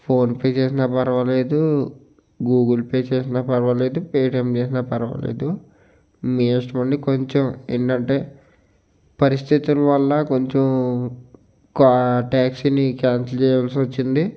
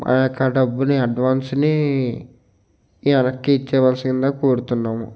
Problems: constant background noise